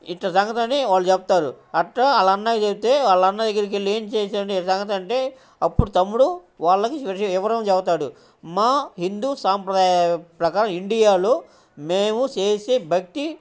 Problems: background sounds at intervals, background conversations at intervals